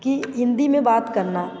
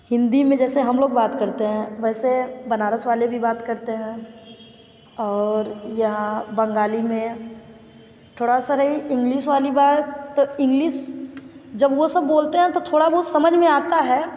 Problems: constant background noise